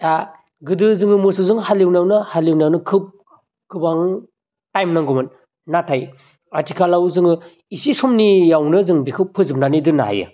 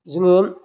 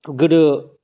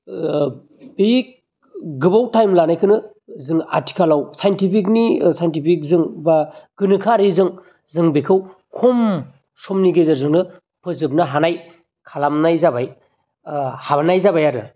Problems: none marked